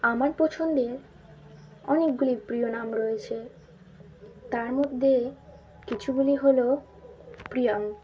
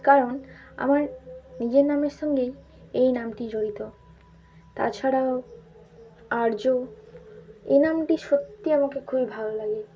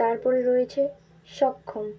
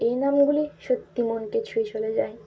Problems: none marked